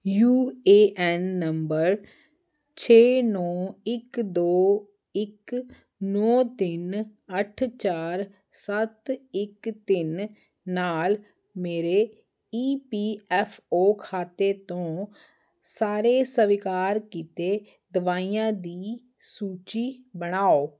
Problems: none marked